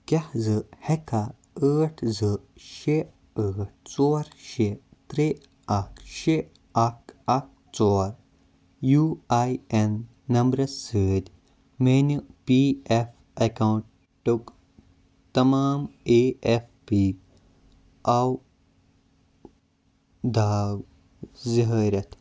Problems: background sounds at intervals